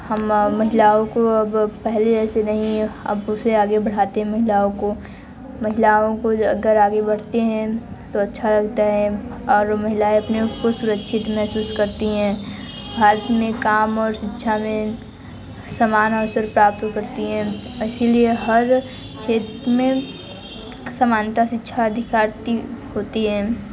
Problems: constant background noise